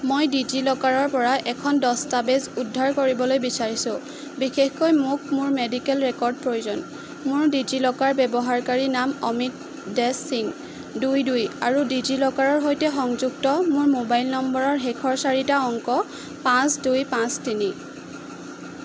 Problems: constant background noise